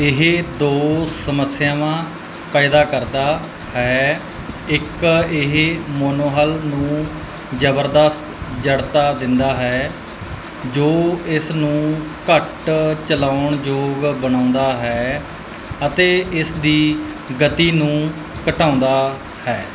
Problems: none marked